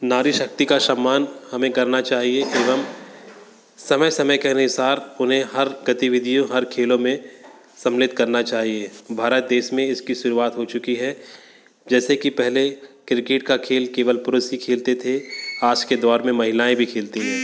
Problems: constant background noise, background conversations at intervals